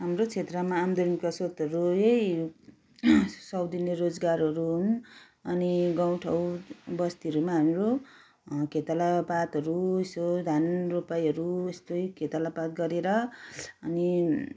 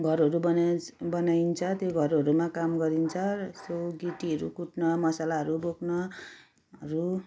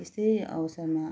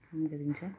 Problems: background sounds at intervals